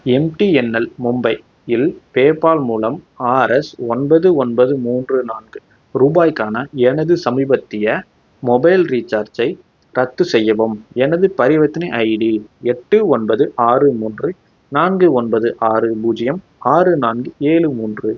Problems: none marked